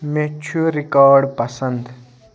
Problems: background conversations at intervals